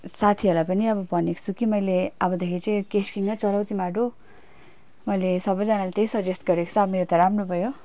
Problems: constant background noise